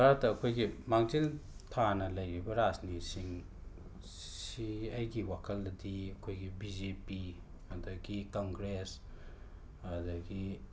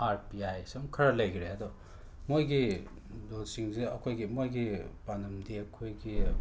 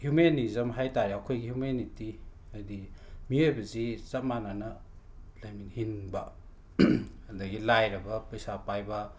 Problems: constant background noise